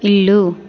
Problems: background conversations at intervals